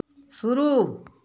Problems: background sounds at intervals